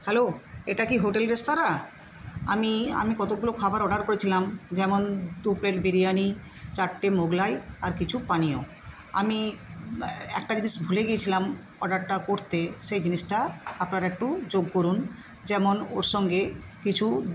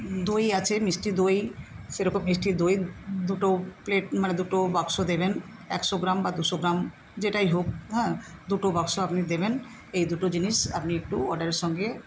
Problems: constant background noise